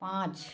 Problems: none marked